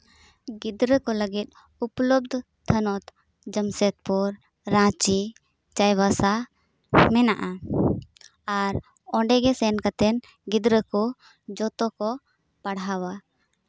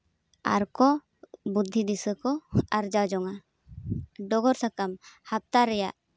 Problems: constant background noise